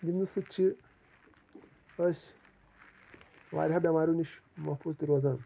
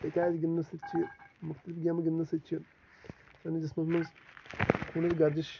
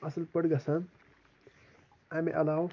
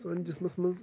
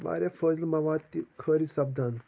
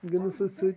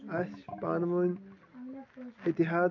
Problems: background sounds at intervals, background conversations at intervals